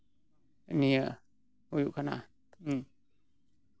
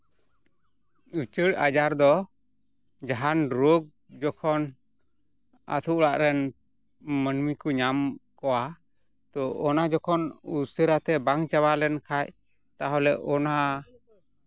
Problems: background sounds at intervals